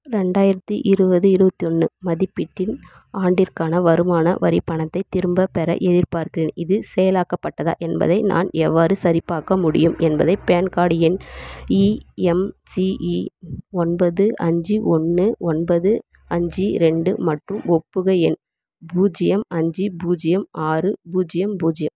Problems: background sounds at intervals